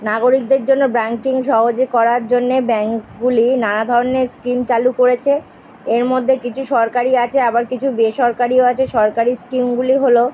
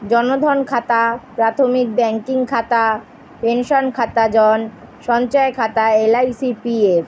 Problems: constant background noise